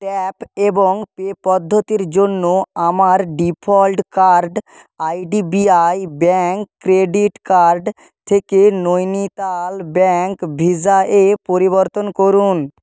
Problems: none marked